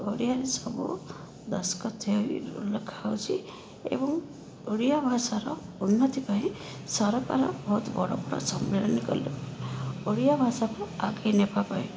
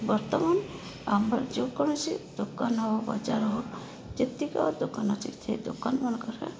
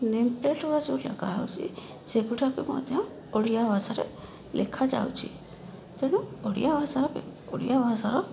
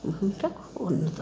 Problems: constant background noise